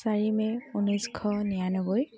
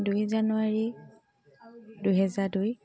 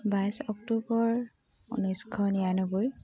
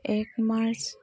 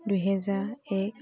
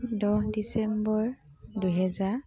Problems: none marked